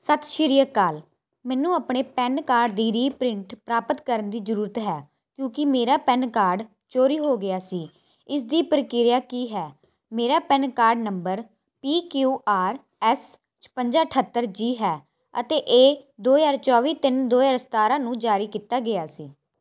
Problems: none marked